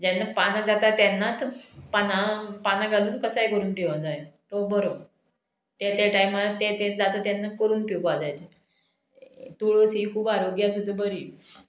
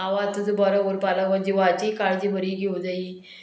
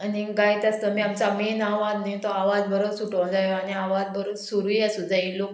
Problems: background sounds at intervals